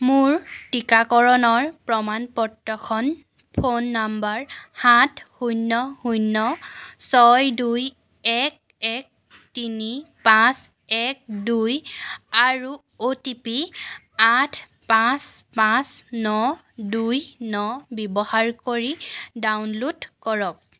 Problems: background sounds at intervals